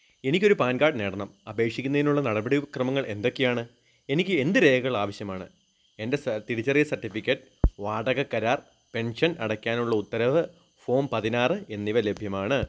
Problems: none marked